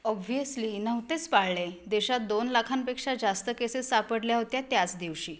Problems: background sounds at intervals